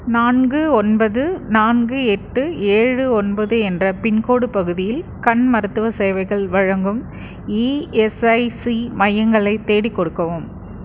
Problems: constant background noise